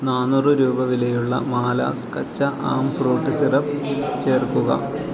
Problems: continuous background conversations